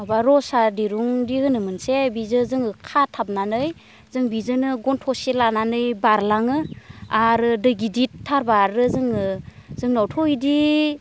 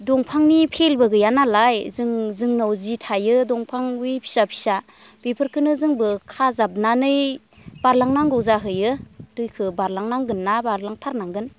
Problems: constant background noise